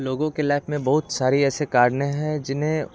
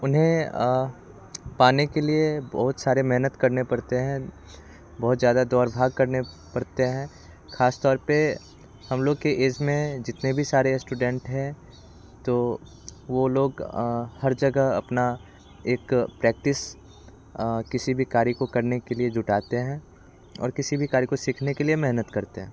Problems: none marked